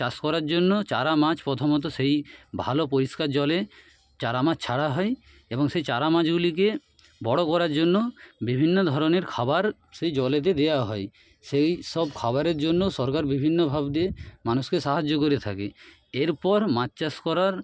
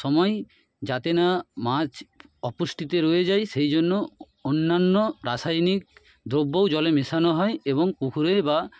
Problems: background sounds at intervals